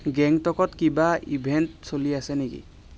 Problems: none marked